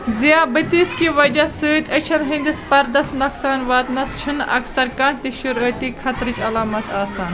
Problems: constant background noise